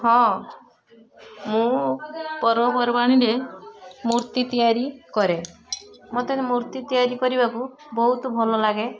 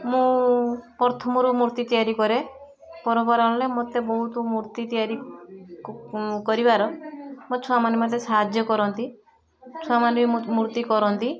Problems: constant background noise, continuous background conversations